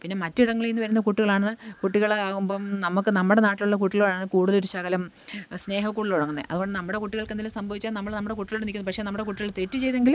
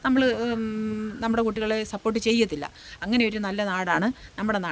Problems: none marked